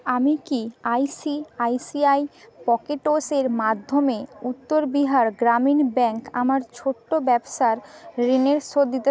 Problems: continuous background conversations